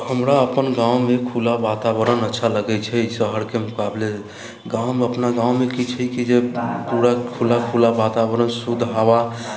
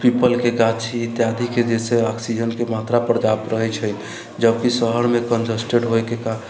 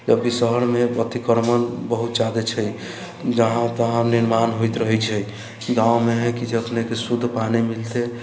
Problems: none marked